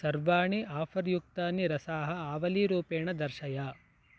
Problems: none marked